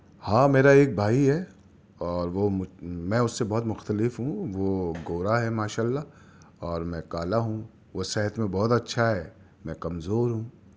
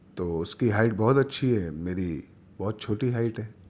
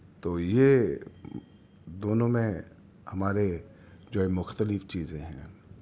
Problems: none marked